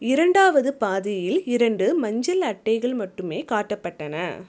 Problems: none marked